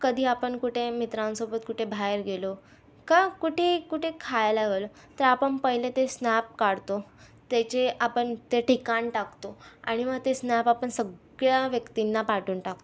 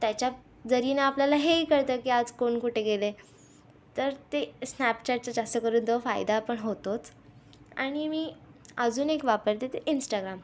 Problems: constant background noise, background conversations at intervals